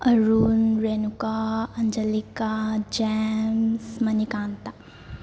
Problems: background sounds at intervals